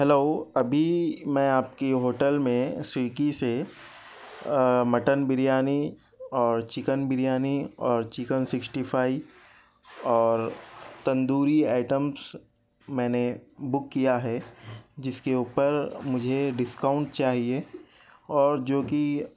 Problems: background conversations at intervals, low volume